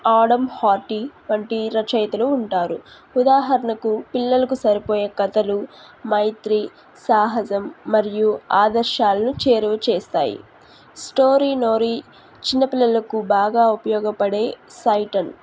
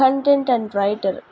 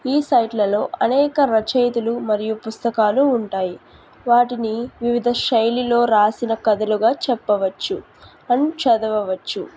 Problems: background sounds at intervals